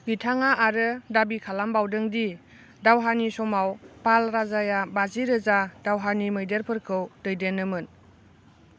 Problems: constant background noise